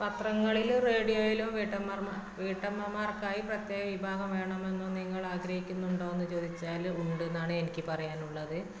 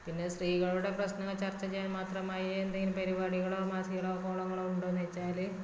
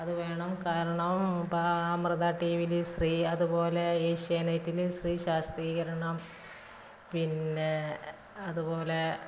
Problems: constant background noise, low volume